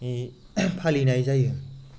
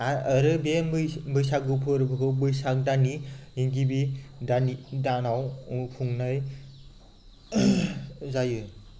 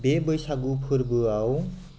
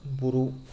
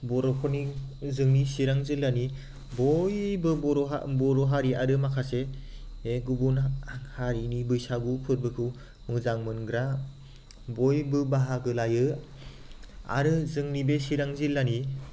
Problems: constant background noise